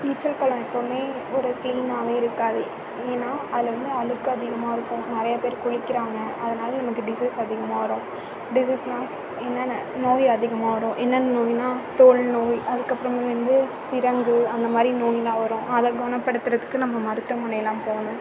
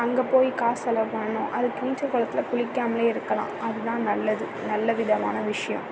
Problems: constant background noise